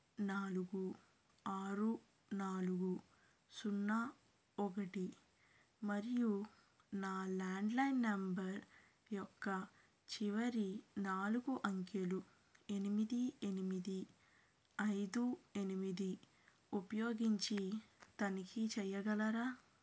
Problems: low volume